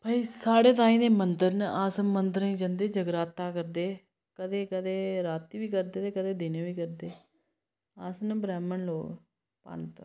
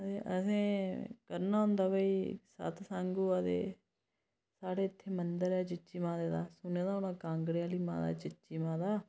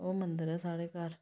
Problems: none marked